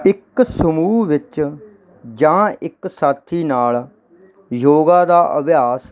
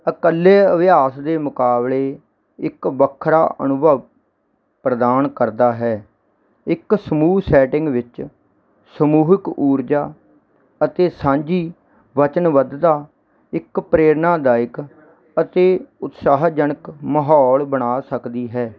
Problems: none marked